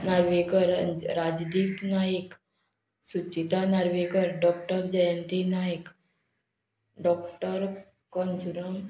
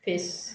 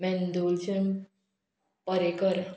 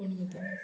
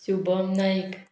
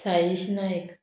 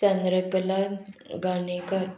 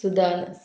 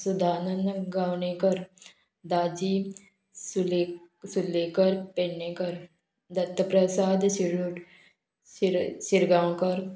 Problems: none marked